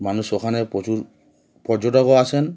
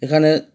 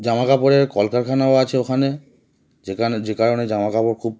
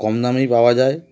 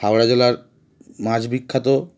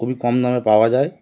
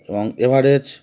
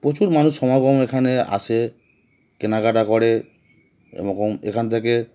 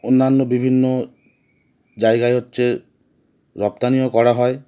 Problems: background sounds at intervals